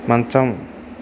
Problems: constant background noise